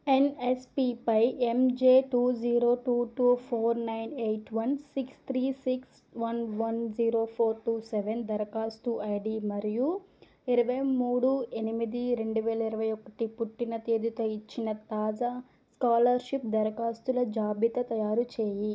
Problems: none marked